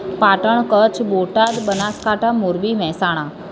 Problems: constant background noise, background conversations at intervals